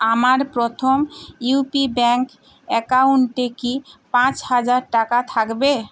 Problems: constant background noise